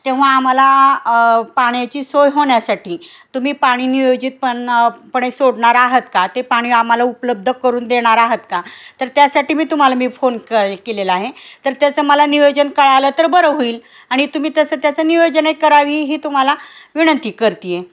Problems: constant background noise